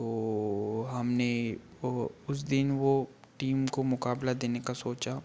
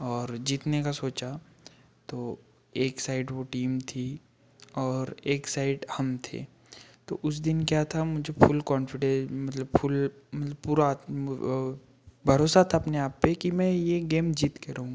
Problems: background sounds at intervals